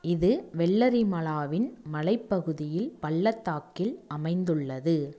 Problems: none marked